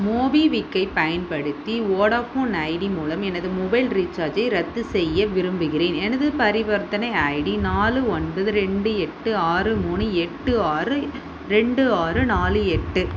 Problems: constant background noise